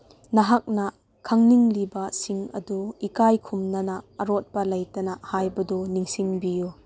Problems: none marked